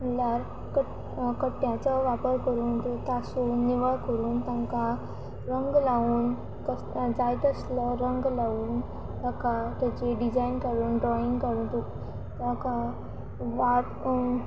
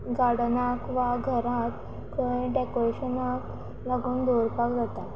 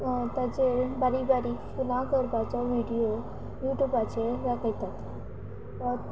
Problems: constant background noise